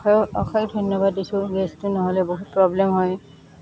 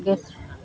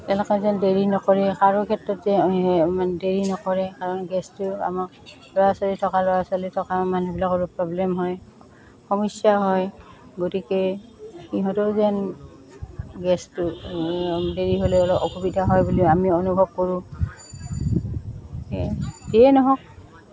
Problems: constant background noise, continuous background conversations